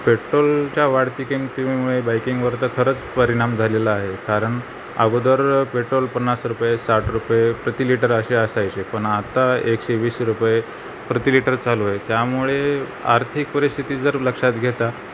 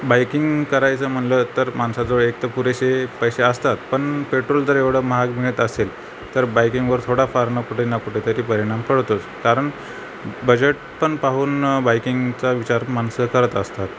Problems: constant background noise